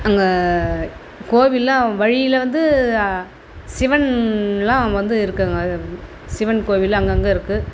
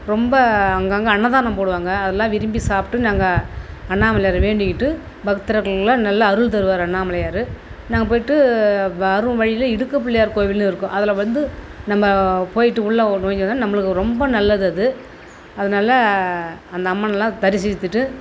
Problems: constant background noise